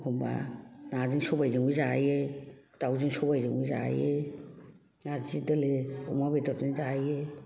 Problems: background conversations at intervals